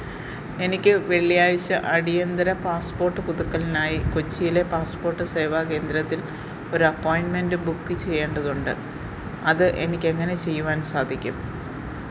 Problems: constant background noise